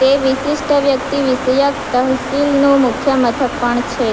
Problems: constant background noise